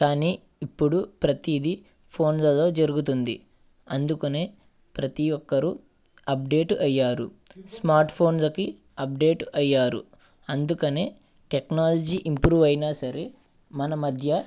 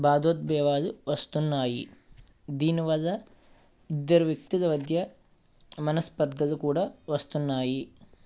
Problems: none marked